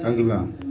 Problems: constant background noise, continuous background conversations